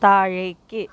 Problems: background sounds at intervals